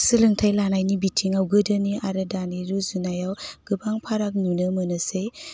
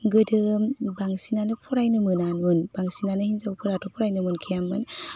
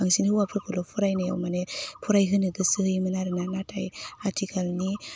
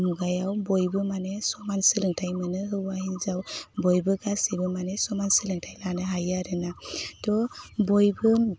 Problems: constant background noise